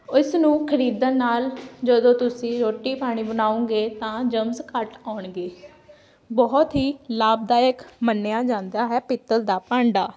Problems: none marked